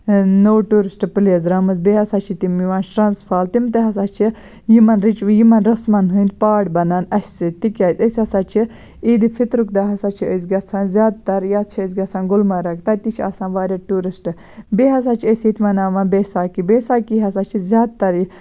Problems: none marked